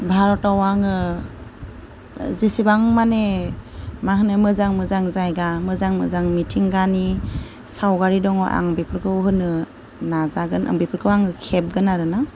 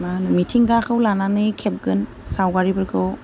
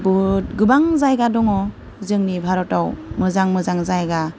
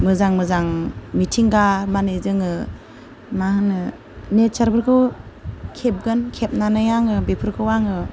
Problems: low volume